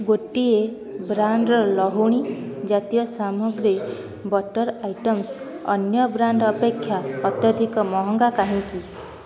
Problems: constant background noise, continuous background conversations